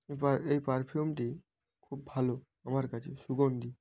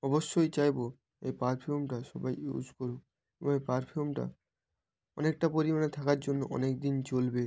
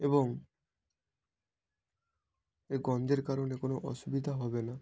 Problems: background sounds at intervals